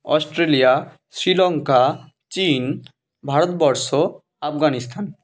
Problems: background sounds at intervals